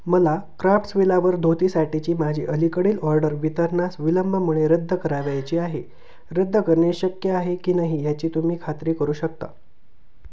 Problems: background sounds at intervals